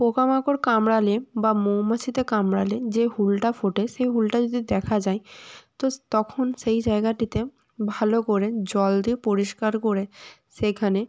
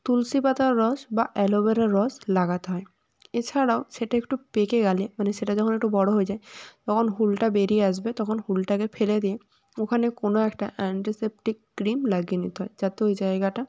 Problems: none marked